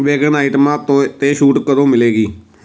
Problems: constant background noise